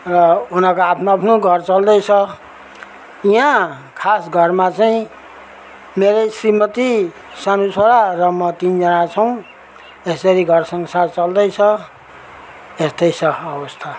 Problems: background sounds at intervals